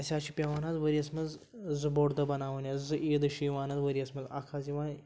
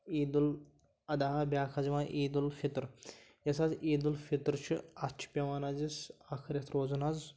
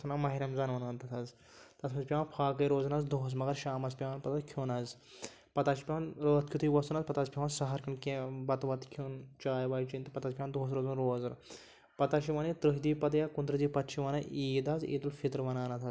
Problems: none marked